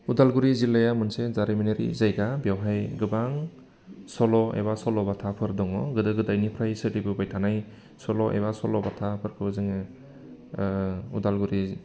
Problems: constant background noise